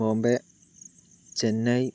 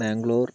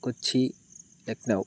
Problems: none marked